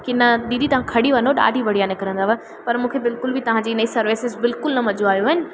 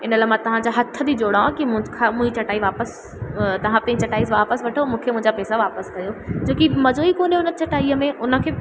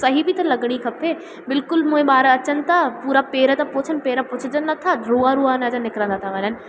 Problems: constant background noise, echo